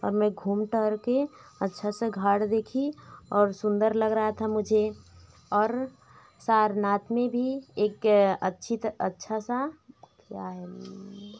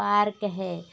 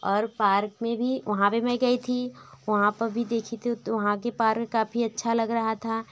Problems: none marked